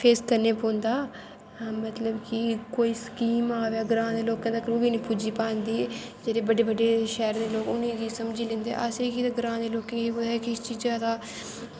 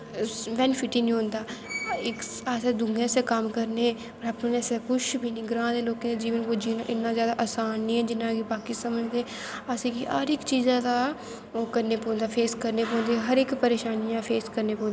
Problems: constant background noise